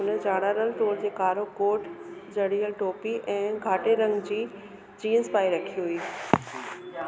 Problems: constant background noise, echo